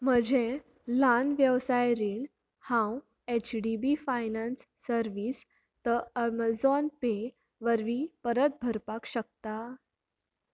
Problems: none marked